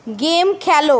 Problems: none marked